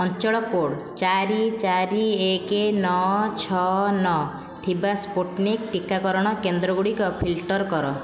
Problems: constant background noise